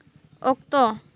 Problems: background sounds at intervals